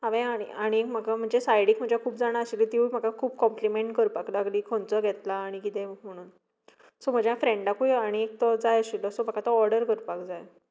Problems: background sounds at intervals